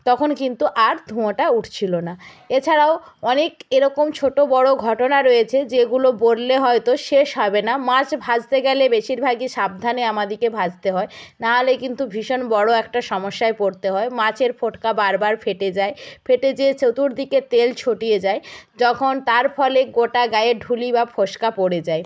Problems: none marked